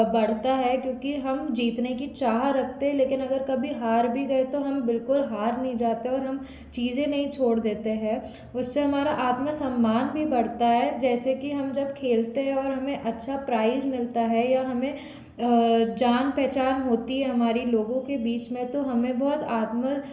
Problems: none marked